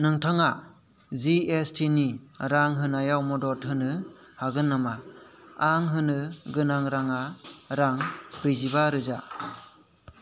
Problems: none marked